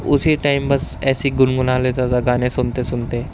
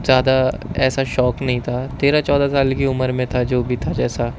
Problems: constant background noise